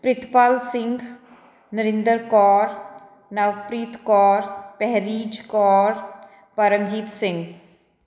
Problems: background sounds at intervals